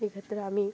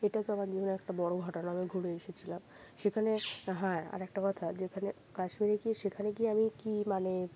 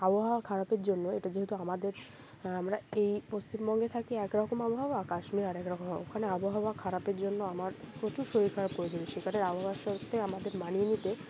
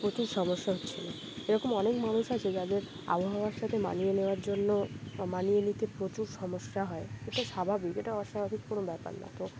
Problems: none marked